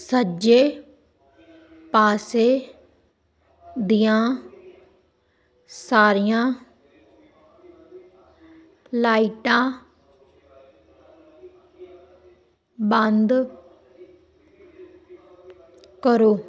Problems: none marked